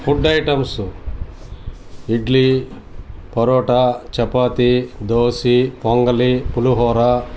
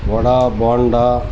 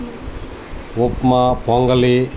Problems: constant background noise, background conversations at intervals